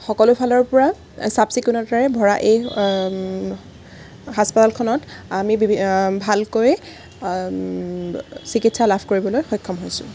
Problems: background sounds at intervals